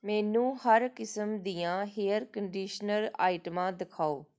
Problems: none marked